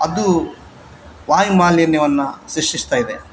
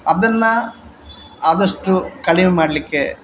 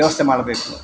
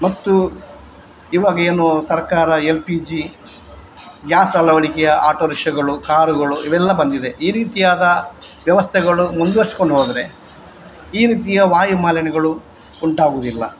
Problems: background sounds at intervals